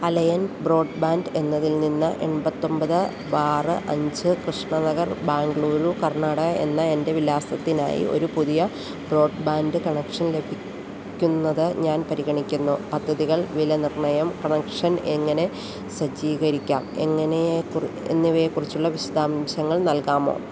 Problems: none marked